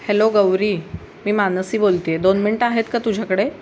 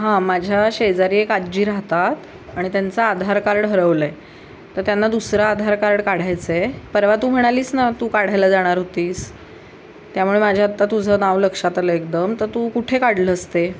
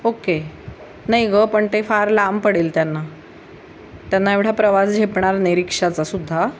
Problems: constant background noise